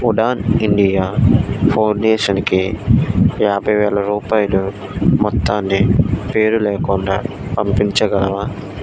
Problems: constant background noise